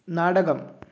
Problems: none marked